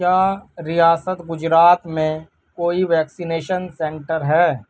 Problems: constant background noise